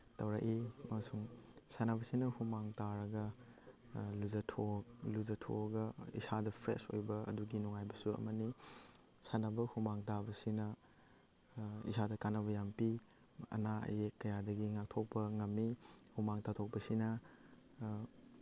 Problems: background sounds at intervals